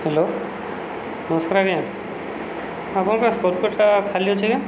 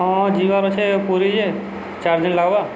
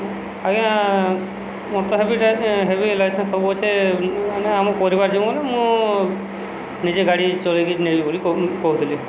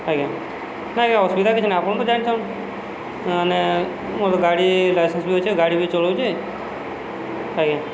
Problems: none marked